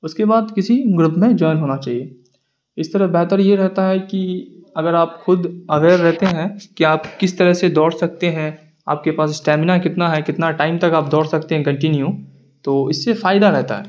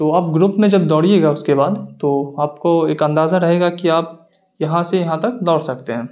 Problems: none marked